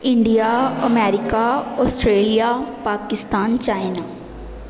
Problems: none marked